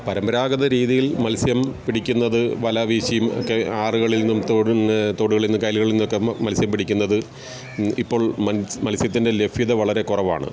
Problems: background sounds at intervals